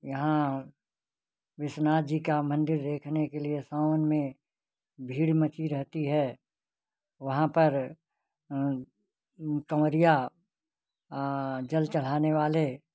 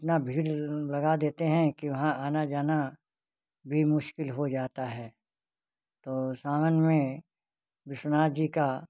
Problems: none marked